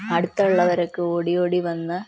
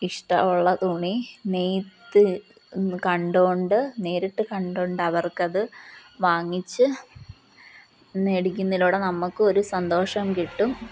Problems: none marked